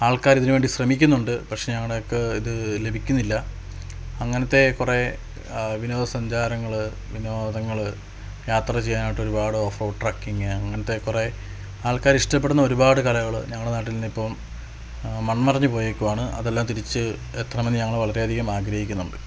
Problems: constant background noise, low volume